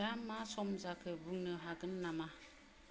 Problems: none marked